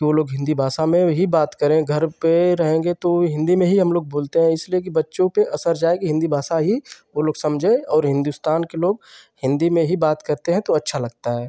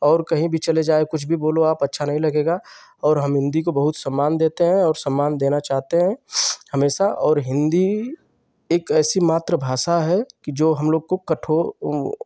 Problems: none marked